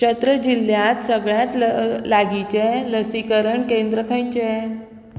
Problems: constant background noise